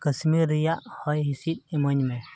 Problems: background sounds at intervals